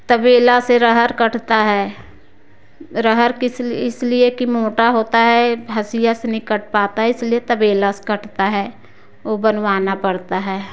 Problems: background sounds at intervals